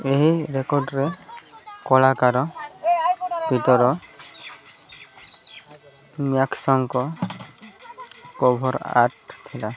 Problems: constant background noise, continuous background conversations